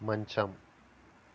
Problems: constant background noise